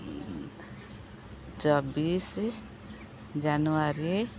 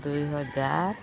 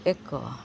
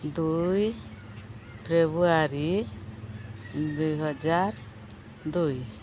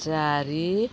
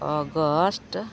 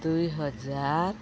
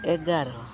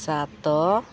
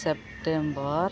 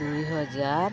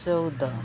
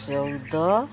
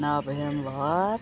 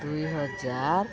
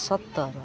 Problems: constant background noise, continuous background conversations